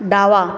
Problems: constant background noise